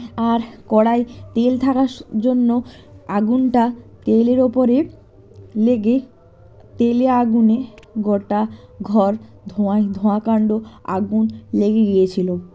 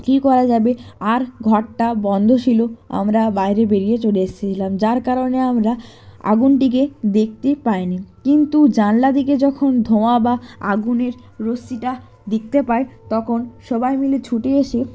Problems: background sounds at intervals